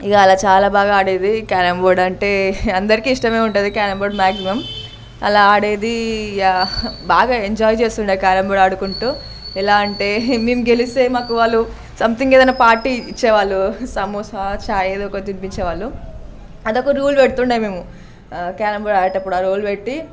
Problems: none marked